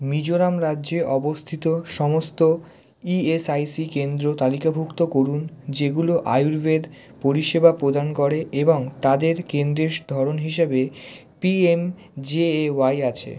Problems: constant background noise